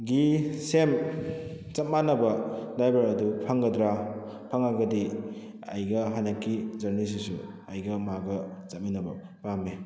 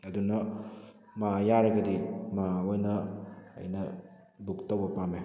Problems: background sounds at intervals